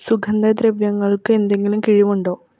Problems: none marked